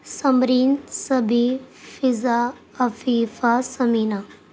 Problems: constant background noise